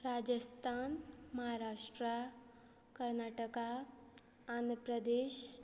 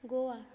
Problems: low volume